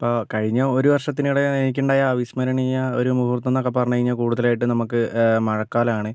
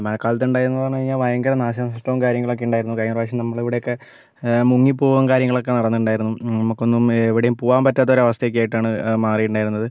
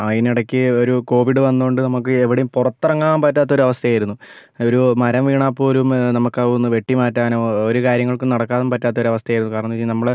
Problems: none marked